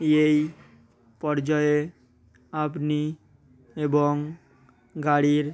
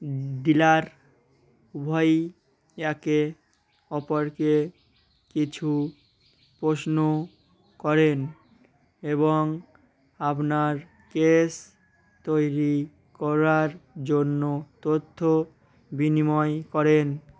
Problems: none marked